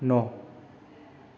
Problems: none marked